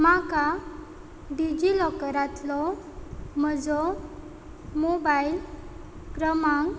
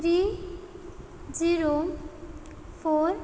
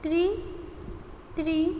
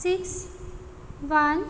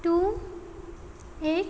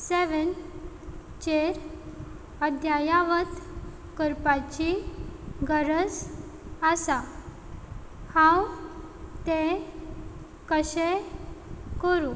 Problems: none marked